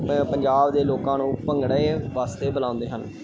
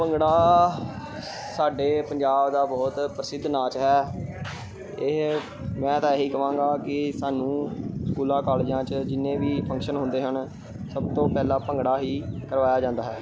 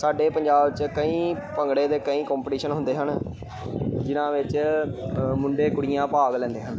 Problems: none marked